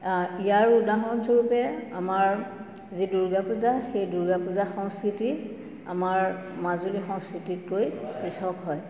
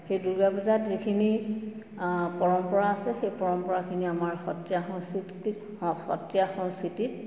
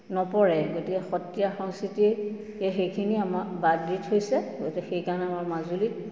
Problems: constant background noise, background conversations at intervals, echo